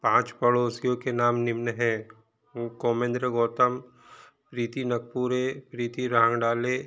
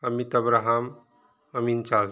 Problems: none marked